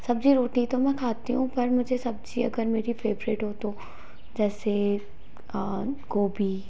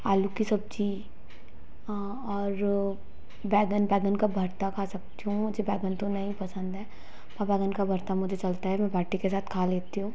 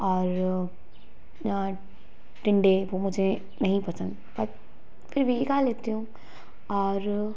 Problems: none marked